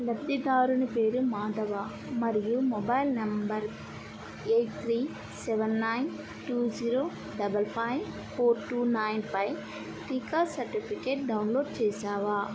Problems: background sounds at intervals, low volume